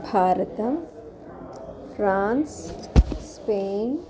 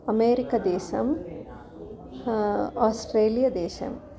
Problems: background sounds at intervals, continuous background conversations